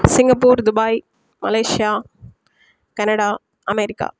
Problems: none marked